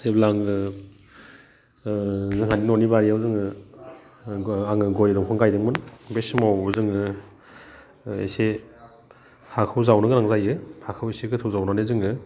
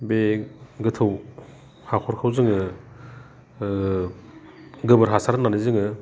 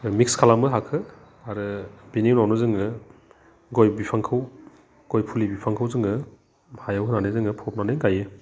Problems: none marked